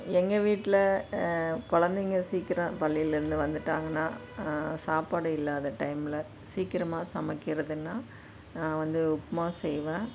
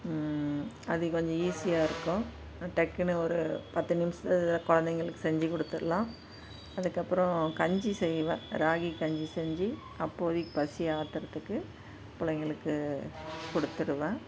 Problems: background sounds at intervals